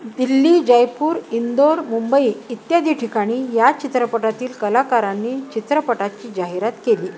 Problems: none marked